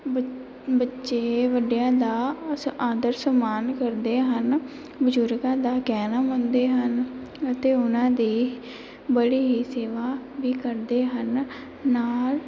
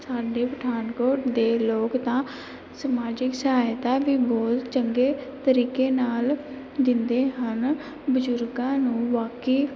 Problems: background sounds at intervals